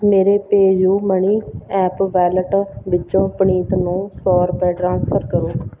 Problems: none marked